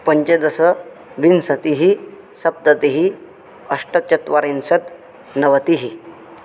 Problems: none marked